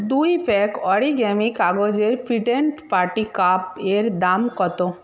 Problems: background sounds at intervals